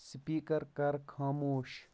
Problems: background sounds at intervals